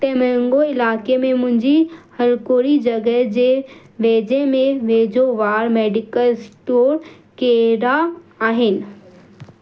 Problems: constant background noise, echo